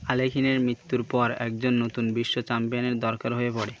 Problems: none marked